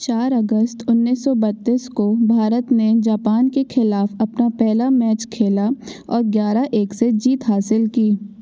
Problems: none marked